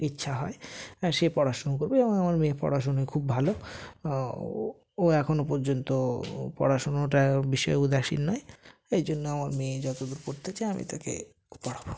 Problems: constant background noise